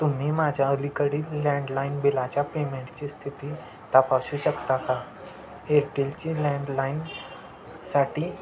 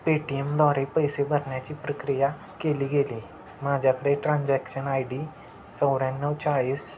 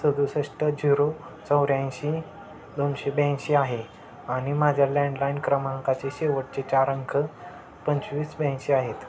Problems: constant background noise